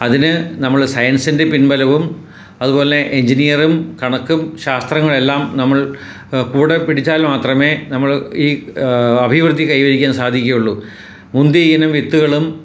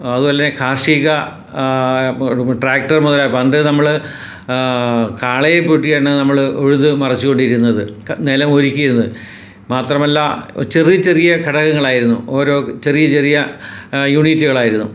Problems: none marked